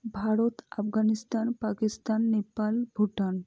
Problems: low volume